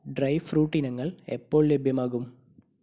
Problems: low volume